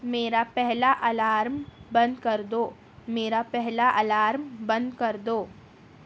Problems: background sounds at intervals